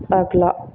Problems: background sounds at intervals